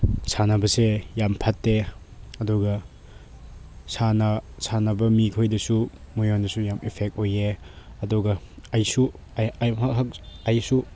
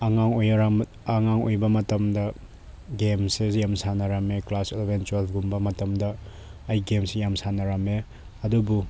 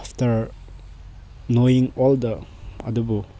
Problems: none marked